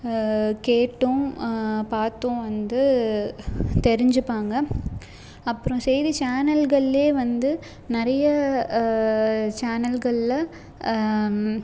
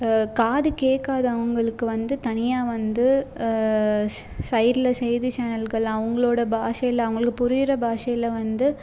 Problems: background sounds at intervals